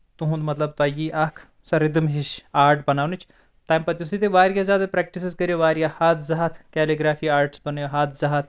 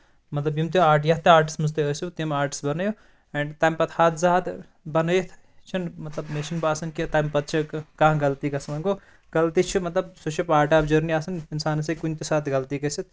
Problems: constant background noise